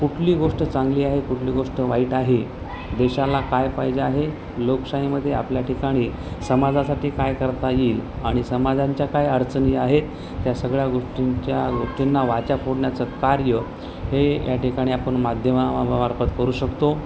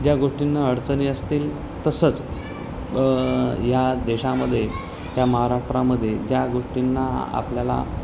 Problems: constant background noise, continuous background conversations